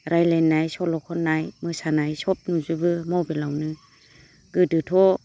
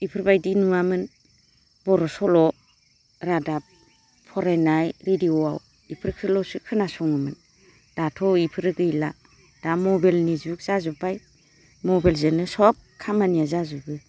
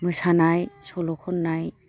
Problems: constant background noise